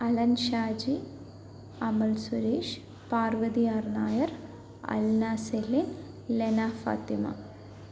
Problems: low volume